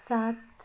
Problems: background sounds at intervals